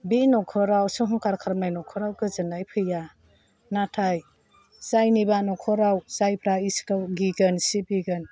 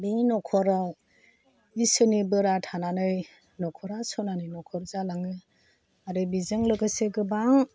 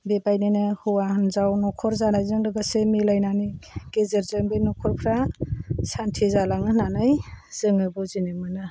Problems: none marked